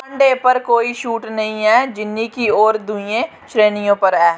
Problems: background sounds at intervals